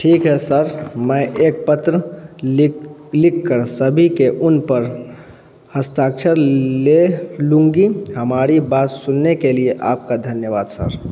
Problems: background sounds at intervals